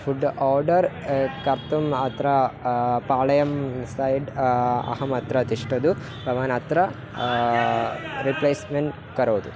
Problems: continuous background conversations